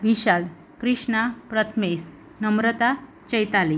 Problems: none marked